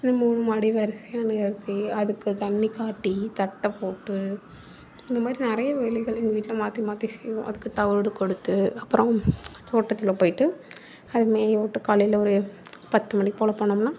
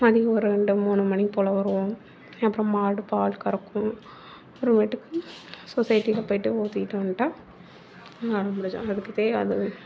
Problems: background conversations at intervals